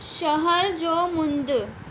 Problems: constant background noise